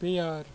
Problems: constant background noise